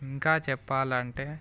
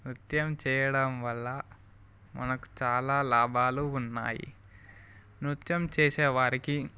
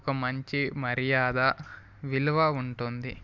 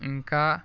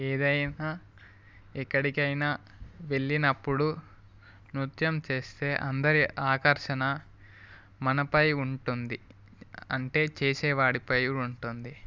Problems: background sounds at intervals